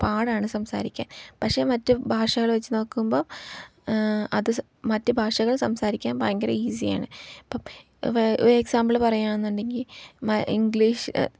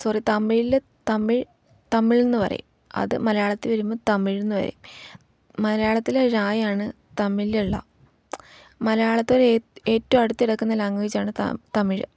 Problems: low volume